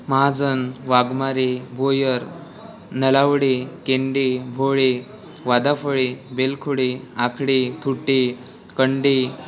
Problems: constant background noise, continuous background conversations